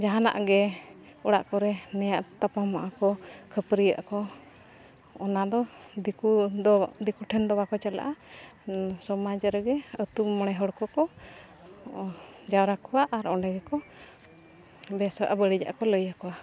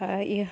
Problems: constant background noise, continuous background conversations